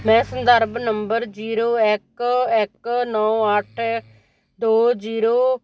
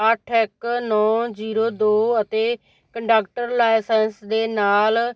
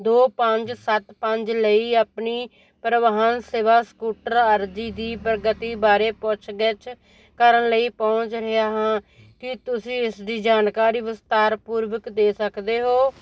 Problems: none marked